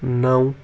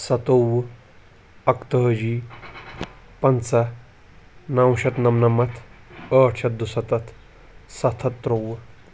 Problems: none marked